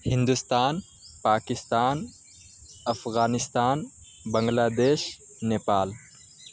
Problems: constant background noise